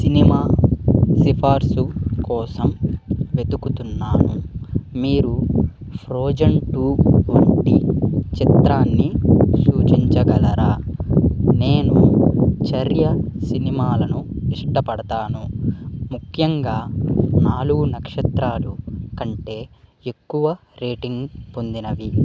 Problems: constant background noise